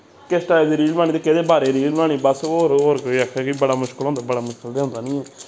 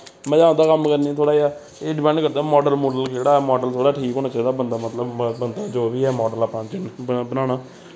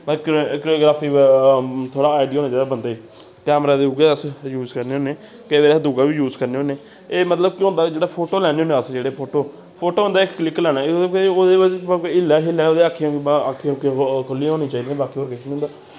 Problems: constant background noise